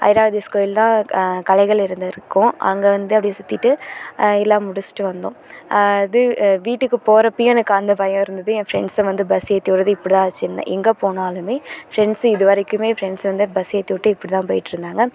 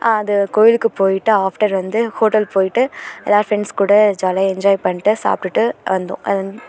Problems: none marked